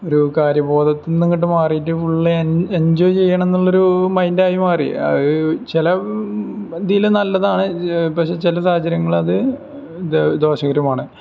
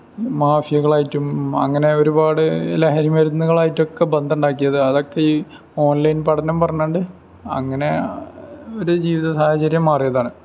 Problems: background sounds at intervals